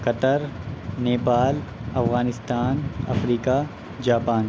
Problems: none marked